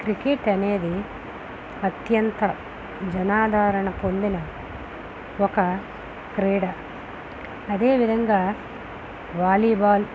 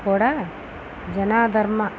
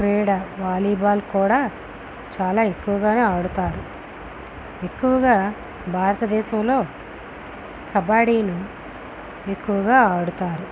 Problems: constant background noise